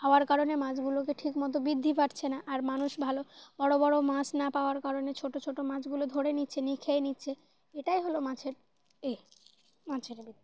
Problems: constant background noise